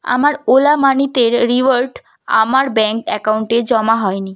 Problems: none marked